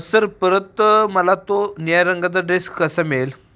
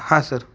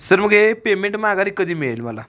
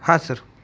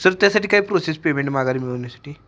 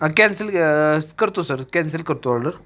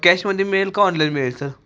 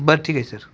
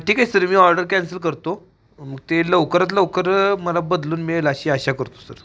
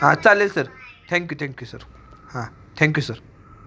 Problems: background sounds at intervals, background conversations at intervals